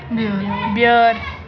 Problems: background conversations at intervals